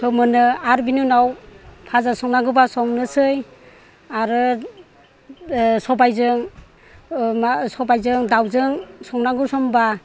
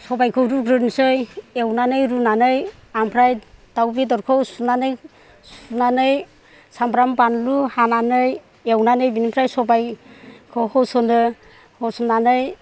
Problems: low volume